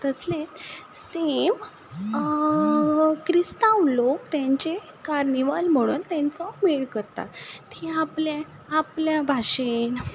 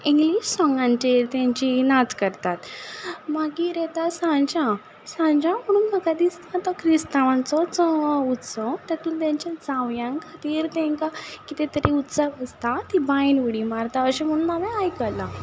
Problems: none marked